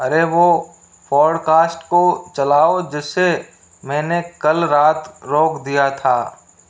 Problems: constant background noise